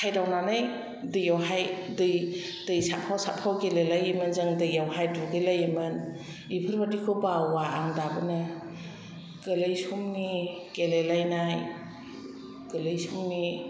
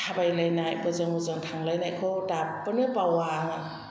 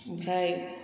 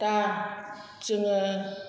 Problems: constant background noise